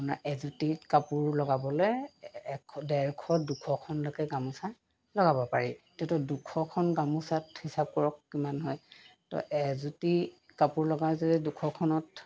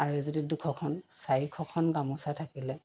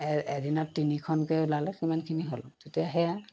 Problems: background sounds at intervals